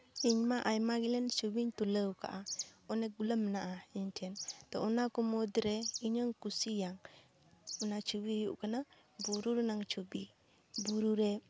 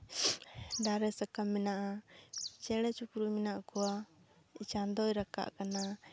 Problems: background sounds at intervals